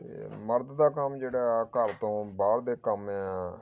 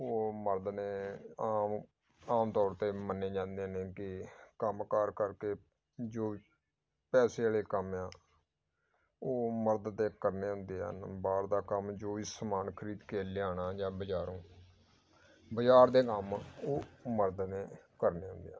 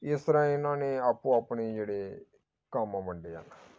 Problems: background sounds at intervals